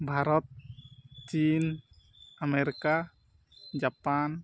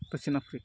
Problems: none marked